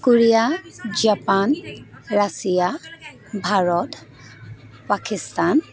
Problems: constant background noise, continuous background conversations